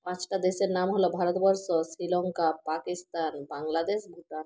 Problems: none marked